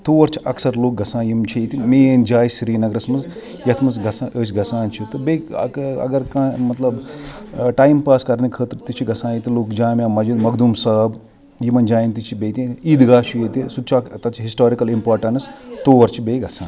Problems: background sounds at intervals, background conversations at intervals